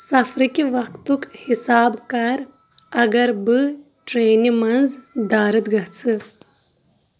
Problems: constant background noise